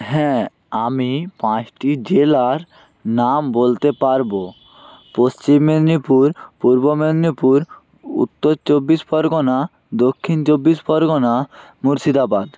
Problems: constant background noise